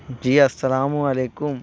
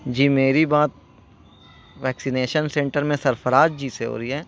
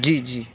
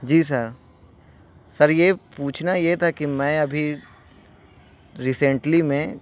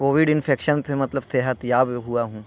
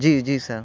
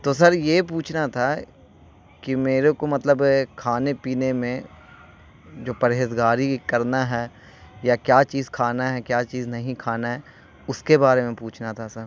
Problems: constant background noise